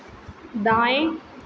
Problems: constant background noise, echo